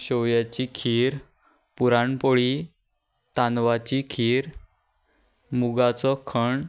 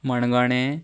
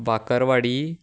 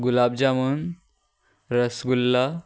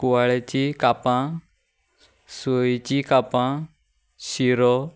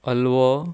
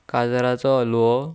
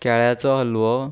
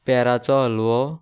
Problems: none marked